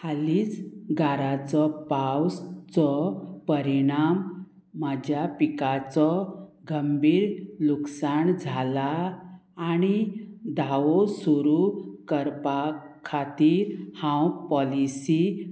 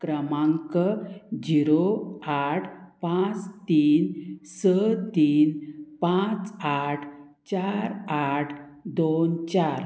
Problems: constant background noise